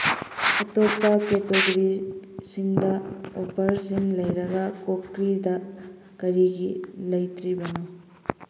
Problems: background sounds at intervals